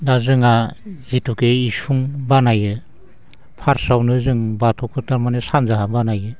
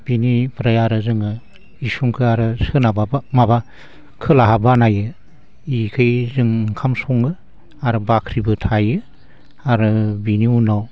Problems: constant background noise